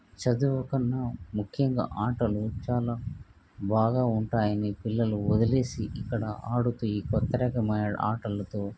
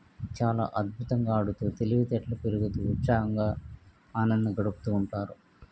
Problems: none marked